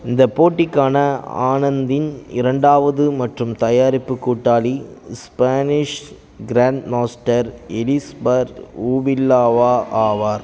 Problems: background sounds at intervals, background conversations at intervals